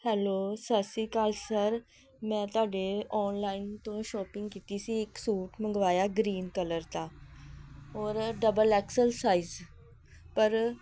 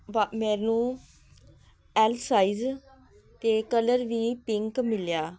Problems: background sounds at intervals